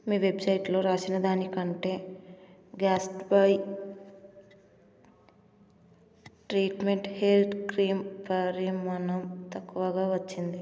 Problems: constant background noise